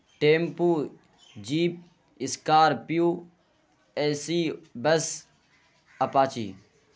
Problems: constant background noise